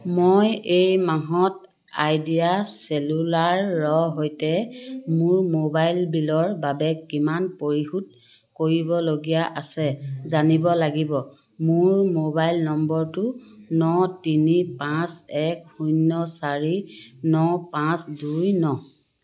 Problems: none marked